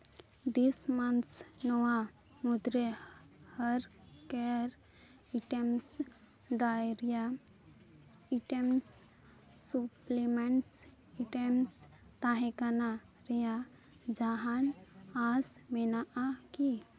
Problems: background sounds at intervals